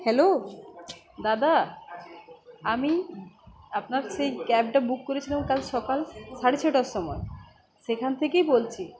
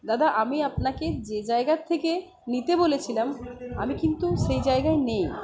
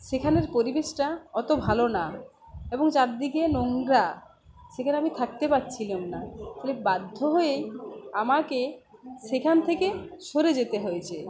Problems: none marked